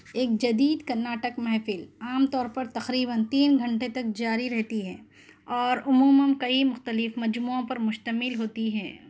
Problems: none marked